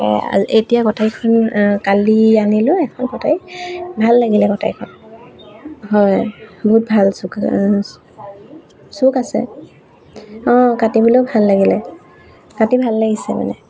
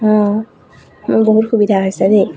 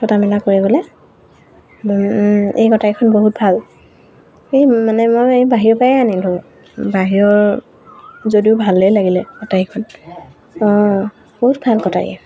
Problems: constant background noise